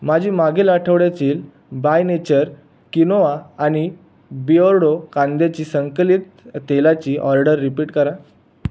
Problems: none marked